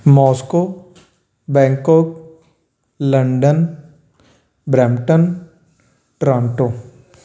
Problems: none marked